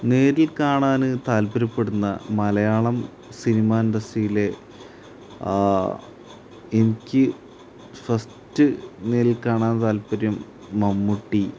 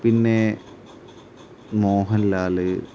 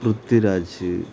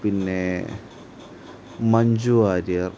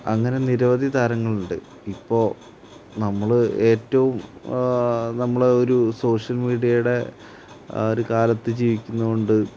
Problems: constant background noise, low volume